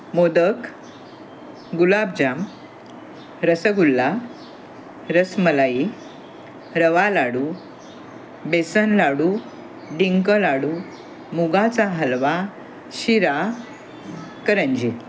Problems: constant background noise, background conversations at intervals